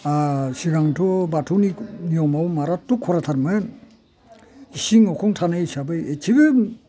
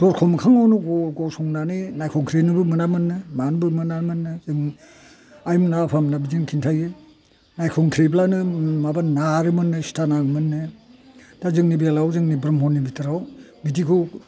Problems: none marked